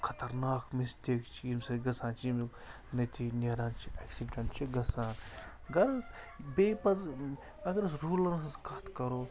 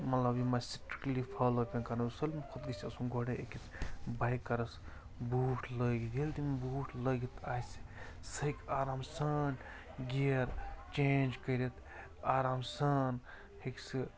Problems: constant background noise